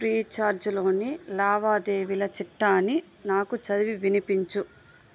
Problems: none marked